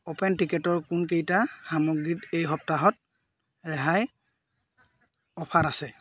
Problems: none marked